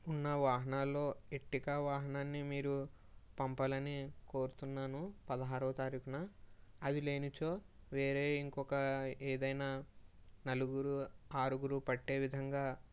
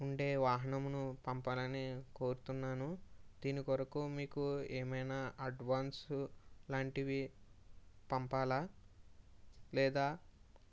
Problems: low volume